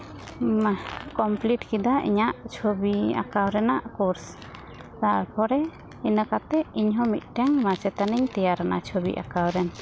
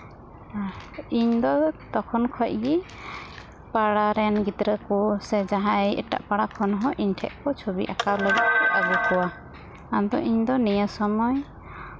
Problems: constant background noise